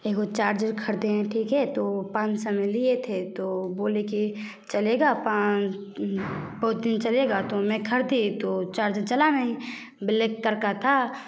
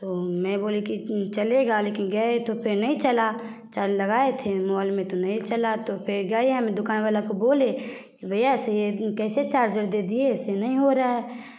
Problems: constant background noise, continuous background conversations